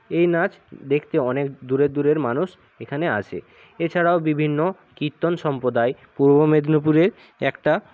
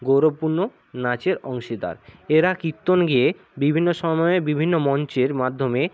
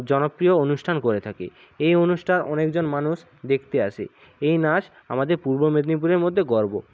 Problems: background sounds at intervals